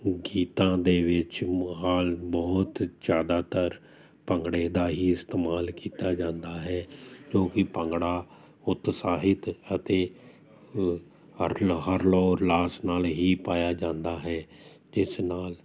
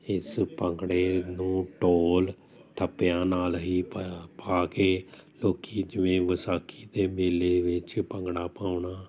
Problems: none marked